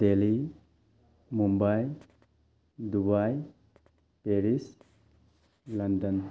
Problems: background sounds at intervals